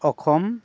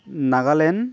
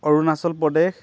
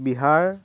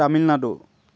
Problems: constant background noise